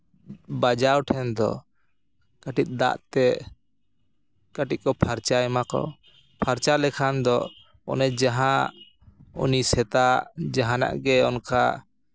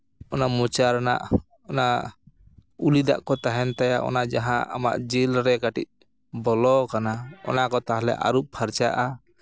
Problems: background sounds at intervals